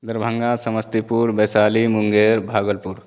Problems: none marked